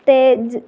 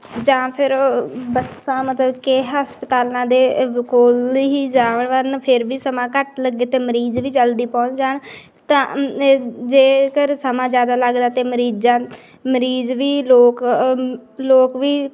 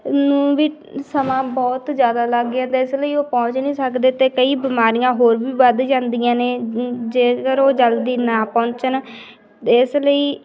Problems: background sounds at intervals